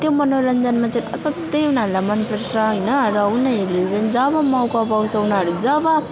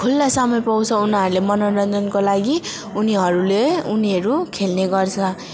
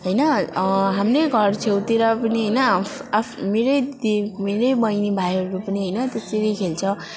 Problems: constant background noise